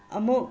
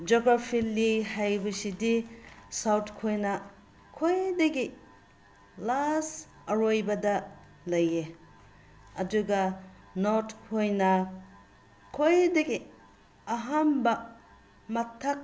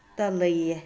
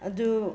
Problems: constant background noise